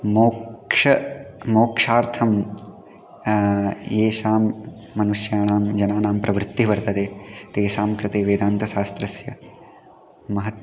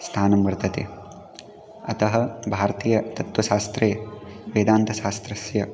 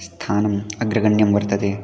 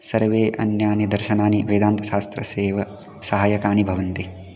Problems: continuous background conversations